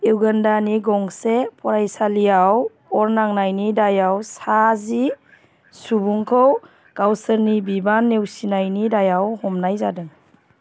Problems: constant background noise